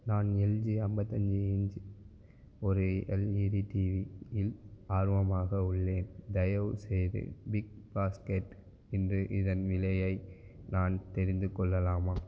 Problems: none marked